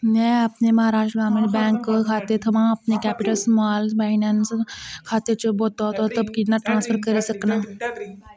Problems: constant background noise